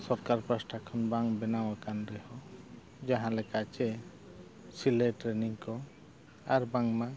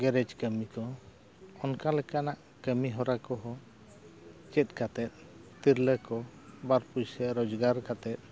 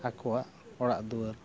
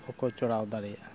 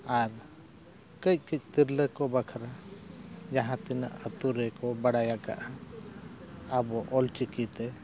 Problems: constant background noise